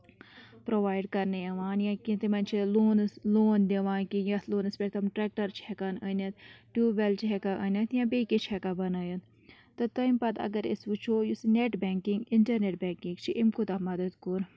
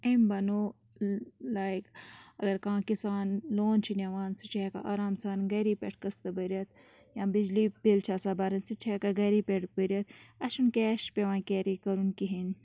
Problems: low volume